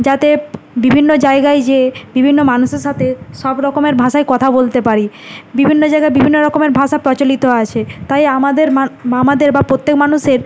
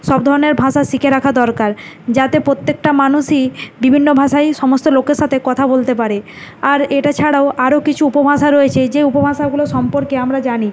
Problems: none marked